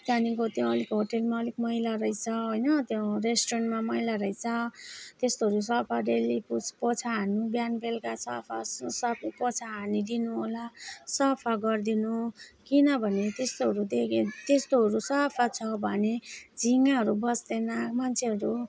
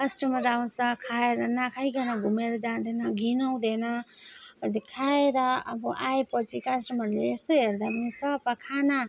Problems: none marked